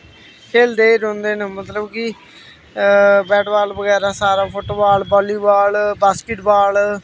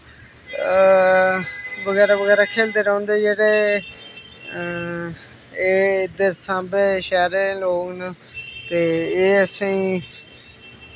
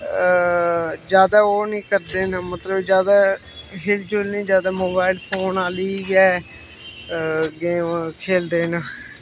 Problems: constant background noise